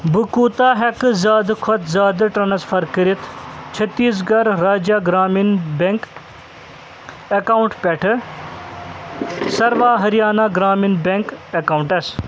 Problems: constant background noise